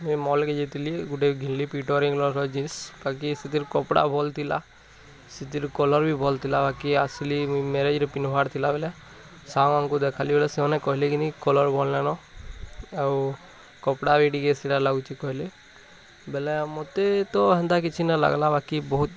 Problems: none marked